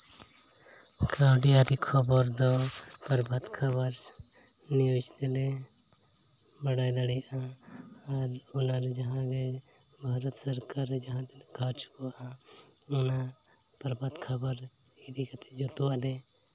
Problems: constant background noise, low volume